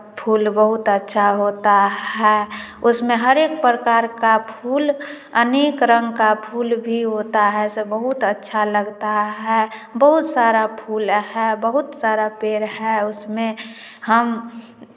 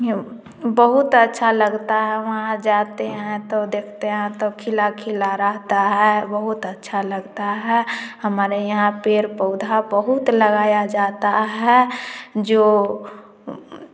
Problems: background sounds at intervals, background conversations at intervals, echo